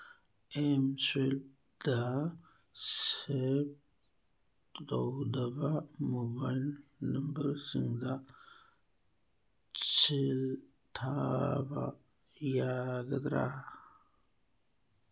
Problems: background sounds at intervals